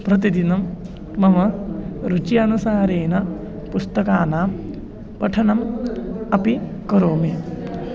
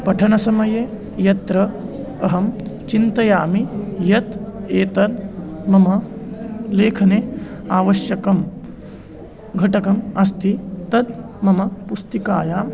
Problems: constant background noise, continuous background conversations